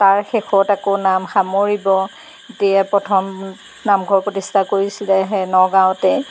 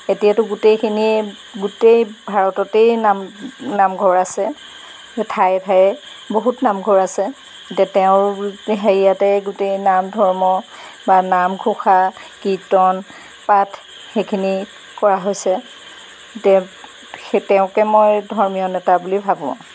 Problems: background sounds at intervals